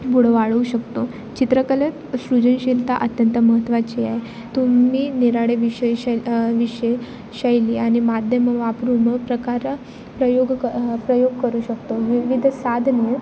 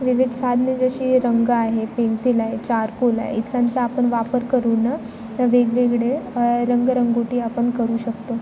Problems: constant background noise, background conversations at intervals